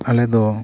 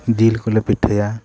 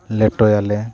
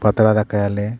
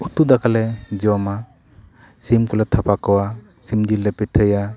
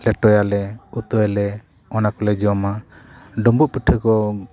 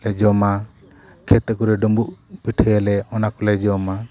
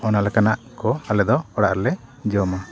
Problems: constant background noise, background conversations at intervals